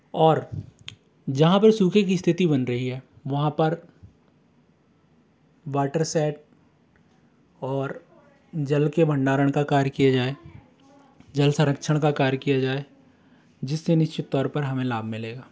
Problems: constant background noise, background conversations at intervals